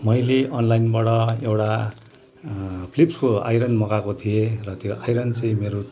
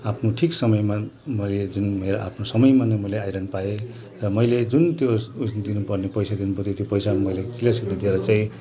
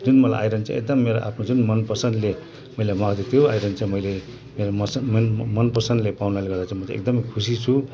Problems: constant background noise, background conversations at intervals